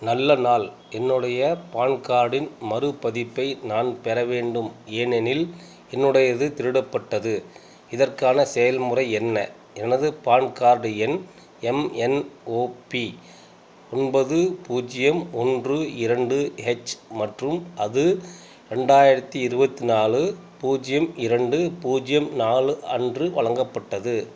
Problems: constant background noise